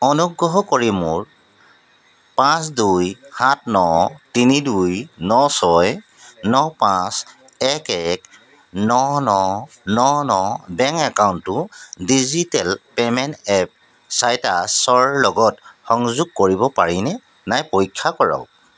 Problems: background sounds at intervals